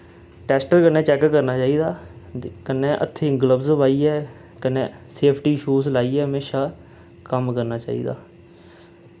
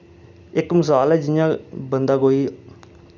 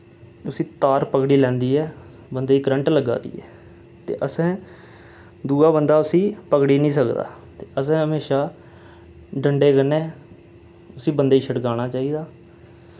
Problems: none marked